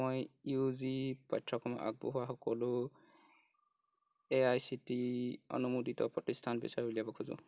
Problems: none marked